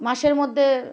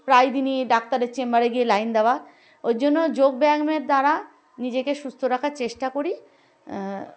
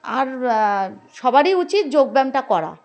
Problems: background sounds at intervals, background conversations at intervals